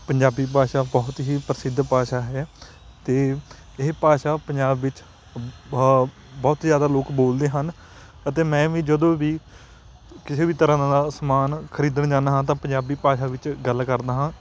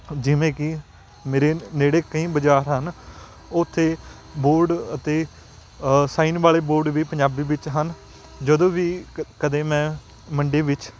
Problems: constant background noise